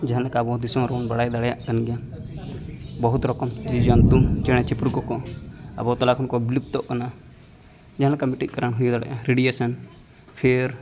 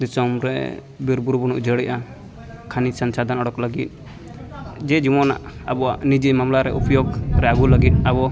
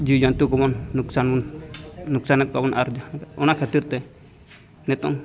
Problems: continuous background conversations